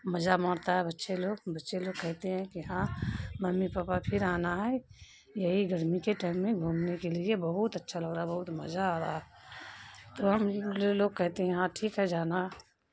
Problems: constant background noise